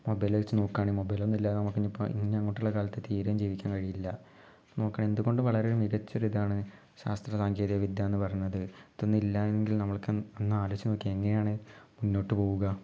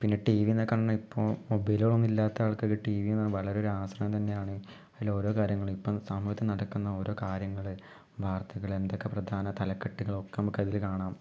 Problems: low volume